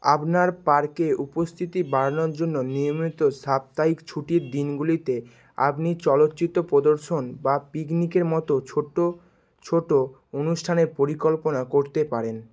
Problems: constant background noise